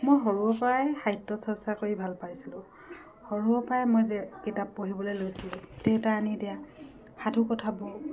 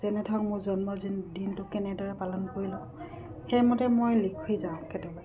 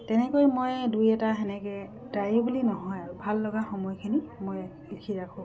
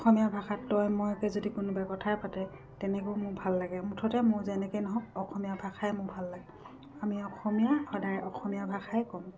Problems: constant background noise